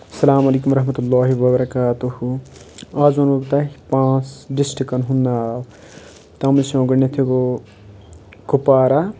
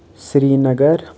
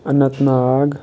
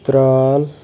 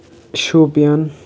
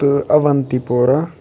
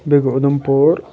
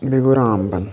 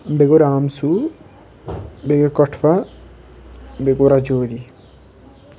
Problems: constant background noise